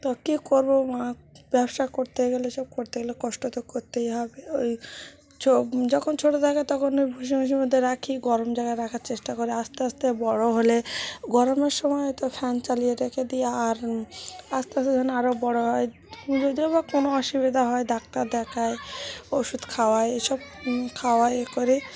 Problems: background sounds at intervals, background conversations at intervals